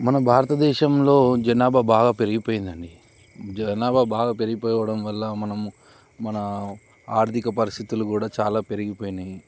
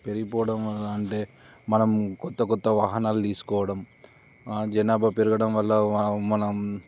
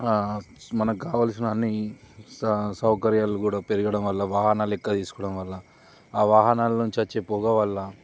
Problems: none marked